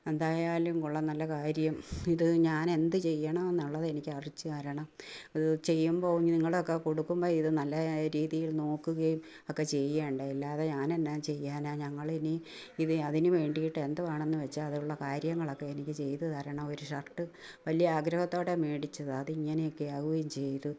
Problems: low volume